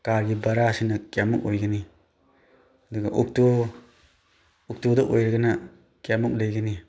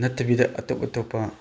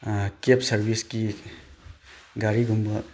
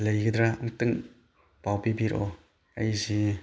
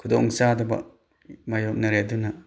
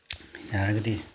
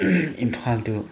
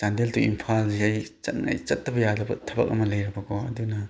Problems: none marked